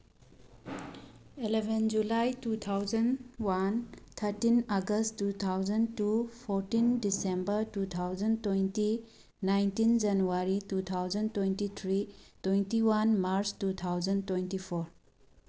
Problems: background sounds at intervals